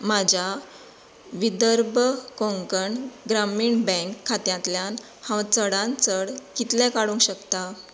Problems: none marked